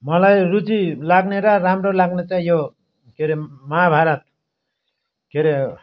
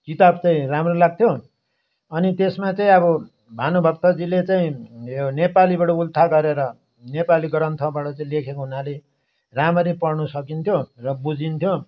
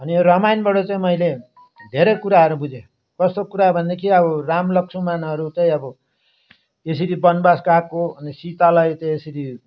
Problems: none marked